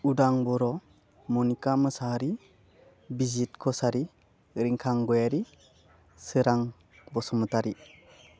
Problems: none marked